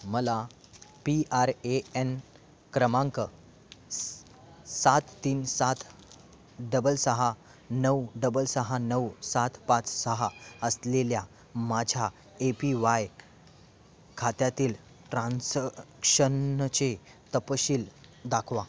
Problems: background sounds at intervals, continuous background conversations